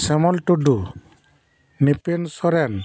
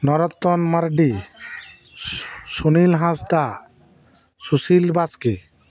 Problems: none marked